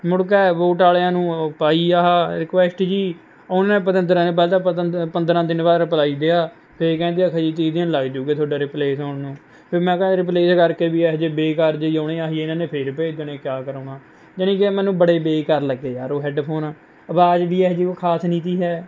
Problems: none marked